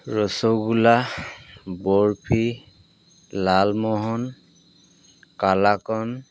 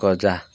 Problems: background sounds at intervals